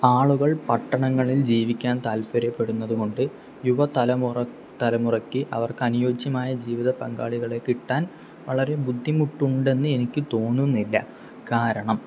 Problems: none marked